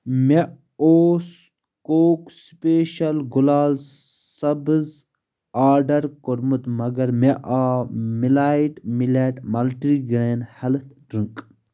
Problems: none marked